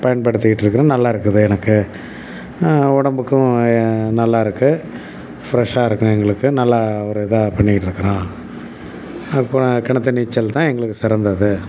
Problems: background sounds at intervals